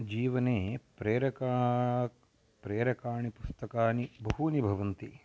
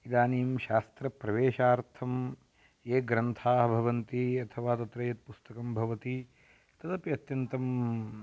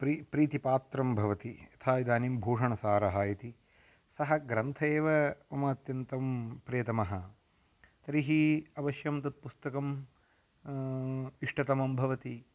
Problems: none marked